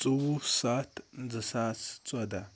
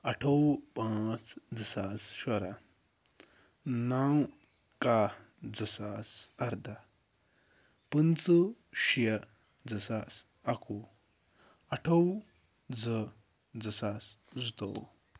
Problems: none marked